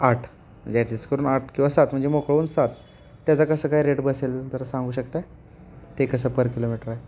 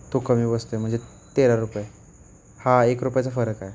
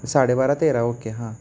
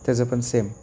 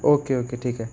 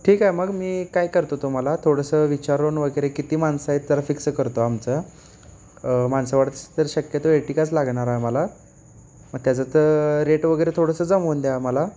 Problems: constant background noise